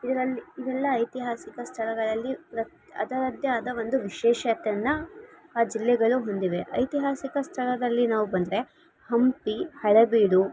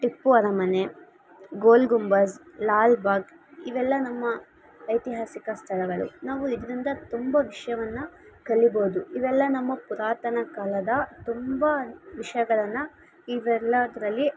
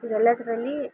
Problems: constant background noise